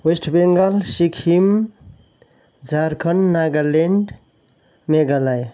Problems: none marked